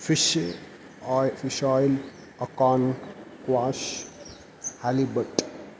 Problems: constant background noise